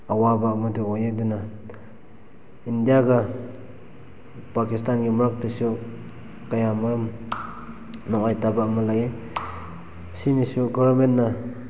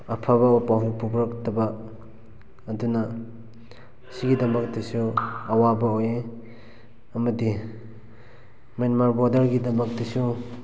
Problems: background sounds at intervals